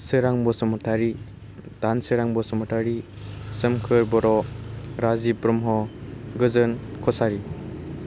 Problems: constant background noise